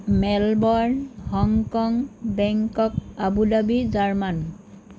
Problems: none marked